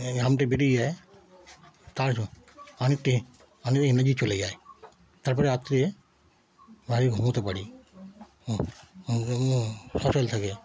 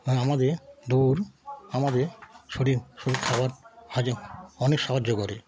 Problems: background sounds at intervals, continuous background conversations